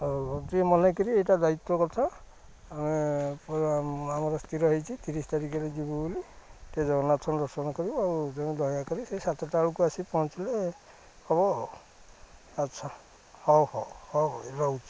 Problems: low volume